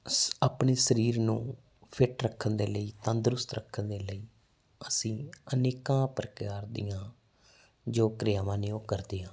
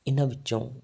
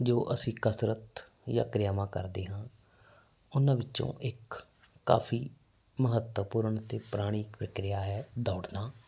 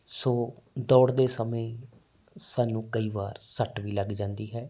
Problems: constant background noise